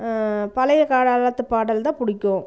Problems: background conversations at intervals